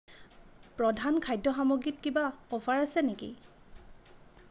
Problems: none marked